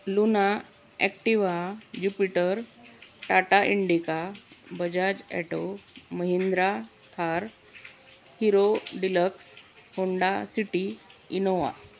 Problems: constant background noise, background conversations at intervals